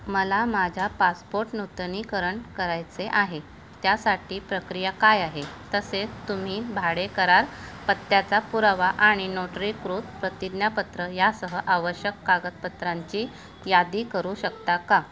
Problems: none marked